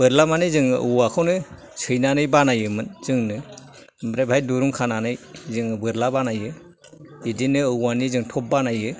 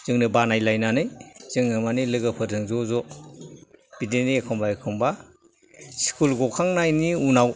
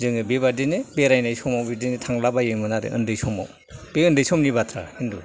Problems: background sounds at intervals, background conversations at intervals